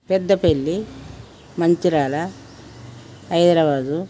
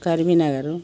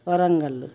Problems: none marked